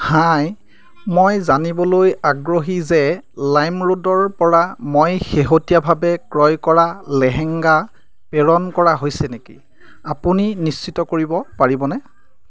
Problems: background sounds at intervals, background conversations at intervals